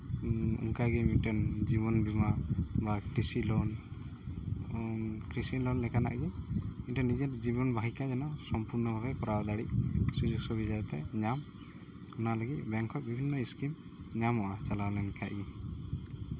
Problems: constant background noise